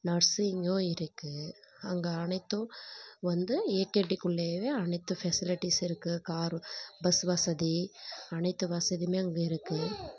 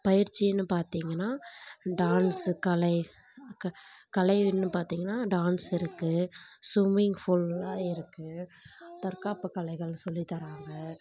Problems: background conversations at intervals